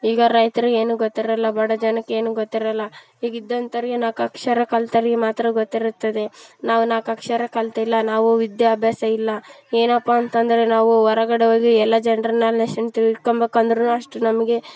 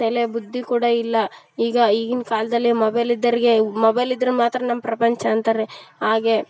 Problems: background sounds at intervals